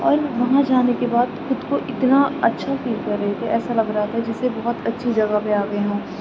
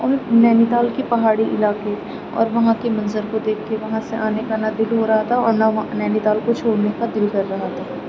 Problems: constant background noise